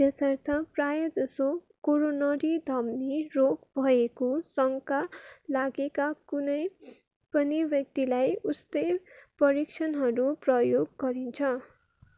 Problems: none marked